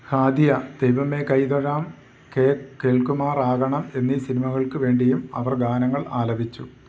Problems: none marked